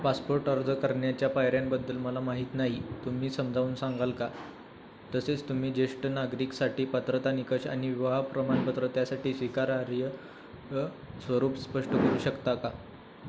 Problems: none marked